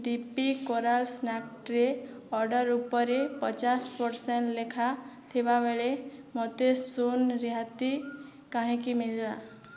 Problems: none marked